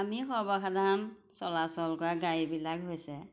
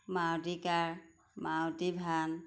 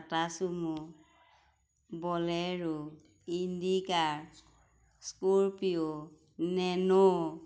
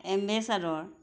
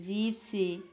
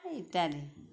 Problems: background sounds at intervals